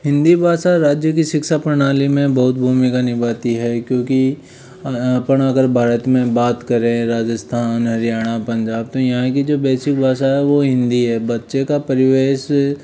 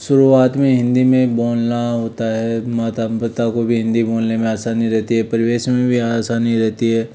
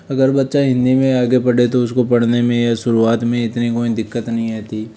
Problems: none marked